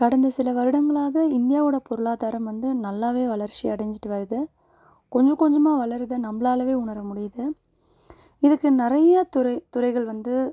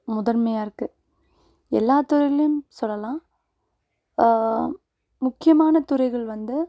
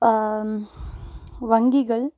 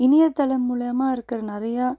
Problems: none marked